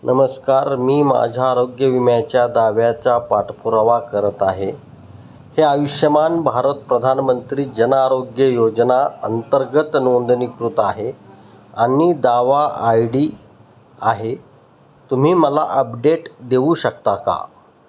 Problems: none marked